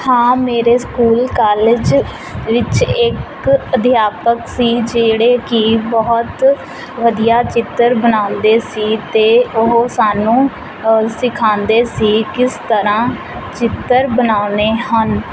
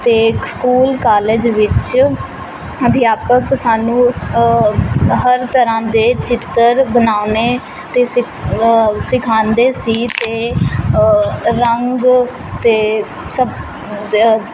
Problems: constant background noise